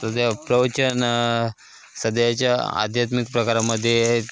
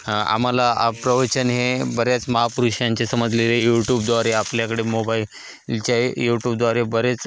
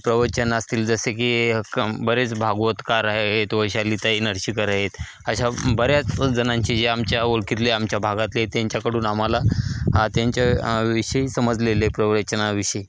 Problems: none marked